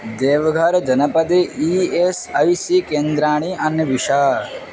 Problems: constant background noise